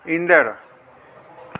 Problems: constant background noise, echo